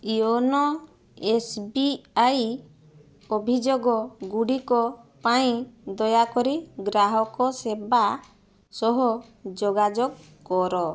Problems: none marked